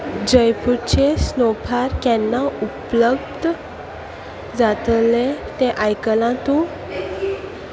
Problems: constant background noise